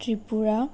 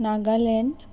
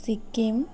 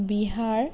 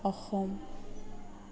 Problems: background conversations at intervals